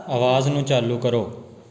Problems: continuous background conversations